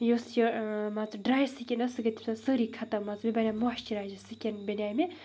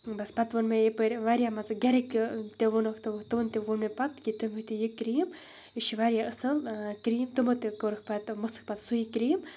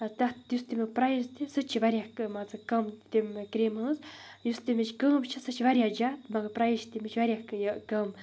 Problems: none marked